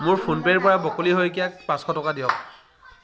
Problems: constant background noise, background conversations at intervals